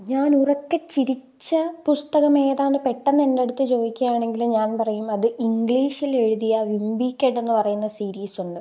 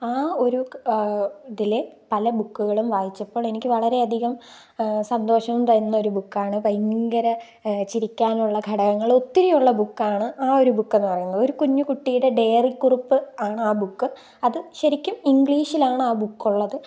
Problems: background sounds at intervals